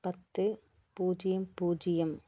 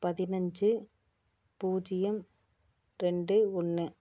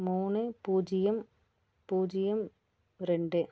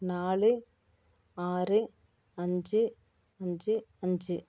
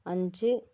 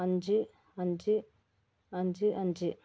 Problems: none marked